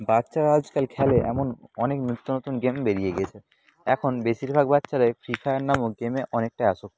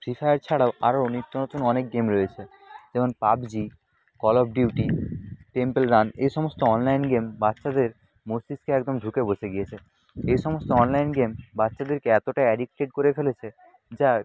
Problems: background sounds at intervals, background conversations at intervals